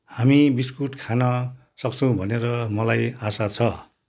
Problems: none marked